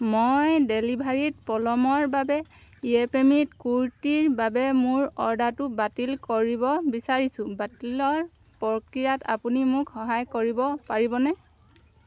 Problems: none marked